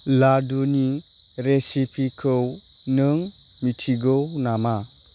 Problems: none marked